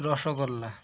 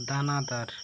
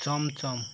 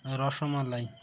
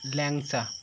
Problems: constant background noise